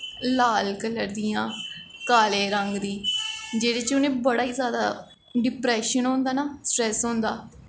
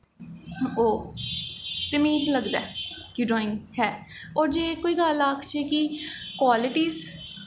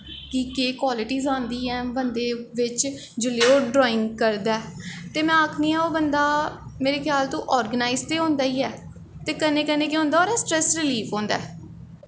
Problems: echo